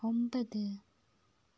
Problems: low volume